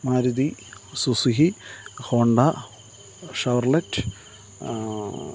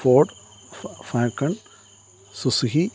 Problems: none marked